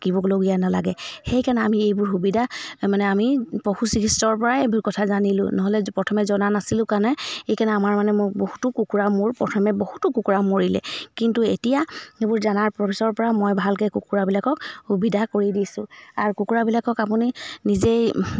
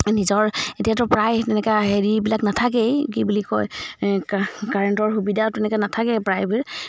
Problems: background sounds at intervals